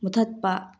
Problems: low volume